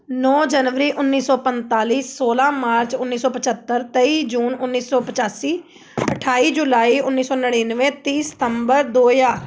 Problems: background sounds at intervals